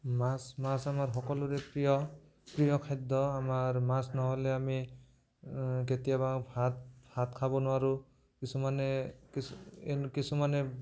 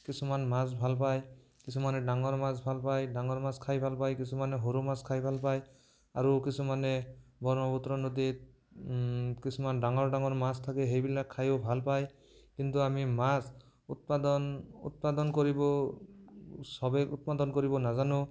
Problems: background conversations at intervals